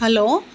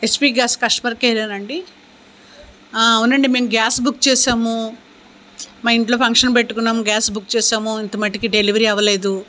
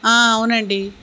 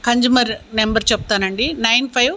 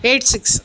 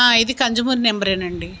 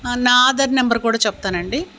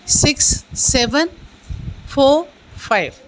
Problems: none marked